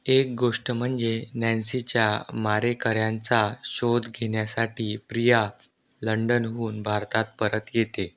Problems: none marked